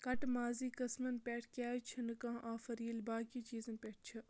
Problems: none marked